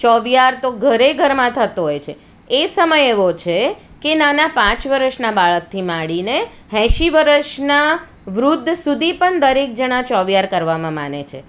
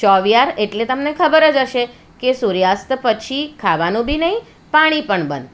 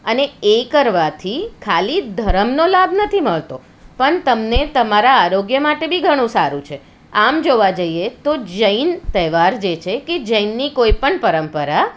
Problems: none marked